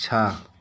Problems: none marked